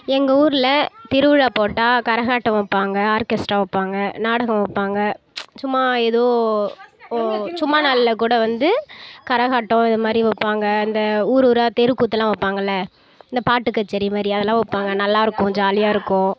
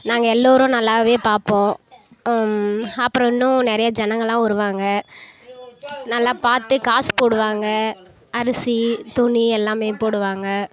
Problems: background conversations at intervals